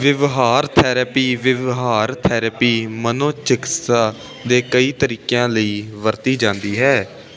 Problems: none marked